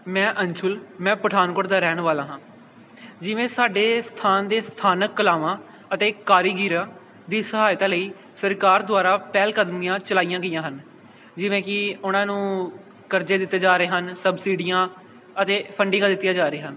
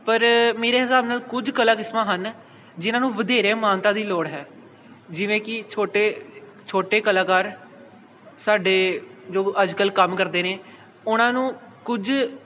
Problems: none marked